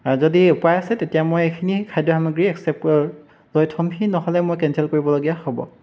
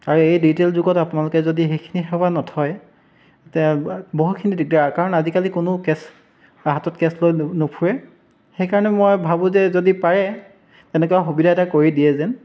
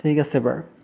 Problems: background sounds at intervals